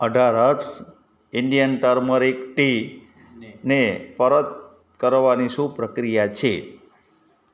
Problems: background conversations at intervals